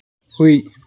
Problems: none marked